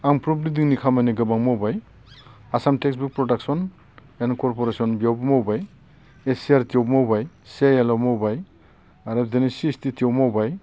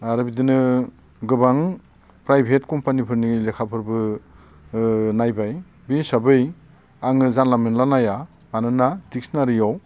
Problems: constant background noise